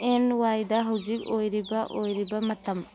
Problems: constant background noise